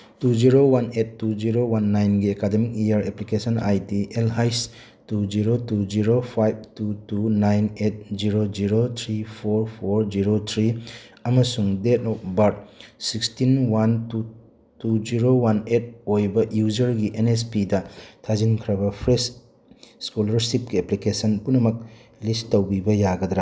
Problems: none marked